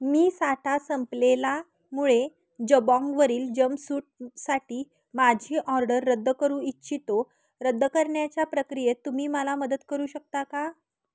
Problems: none marked